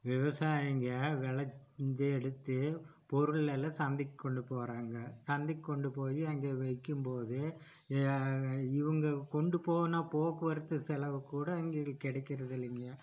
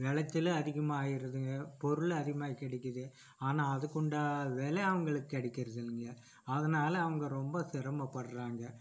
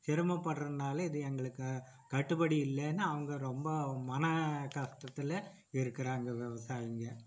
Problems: low volume